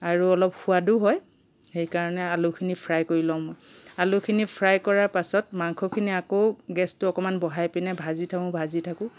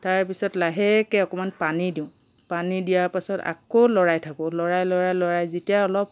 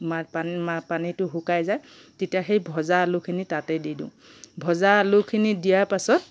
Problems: background sounds at intervals